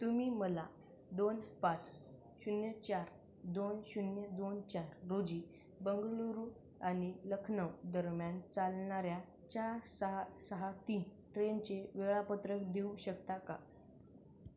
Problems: none marked